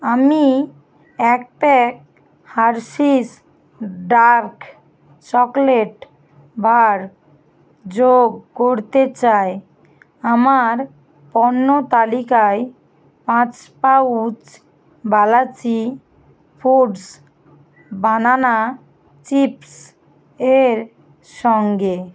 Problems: constant background noise